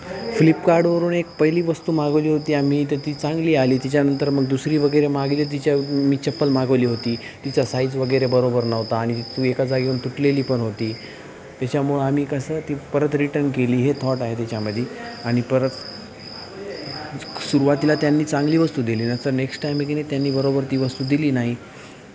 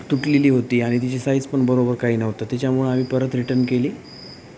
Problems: constant background noise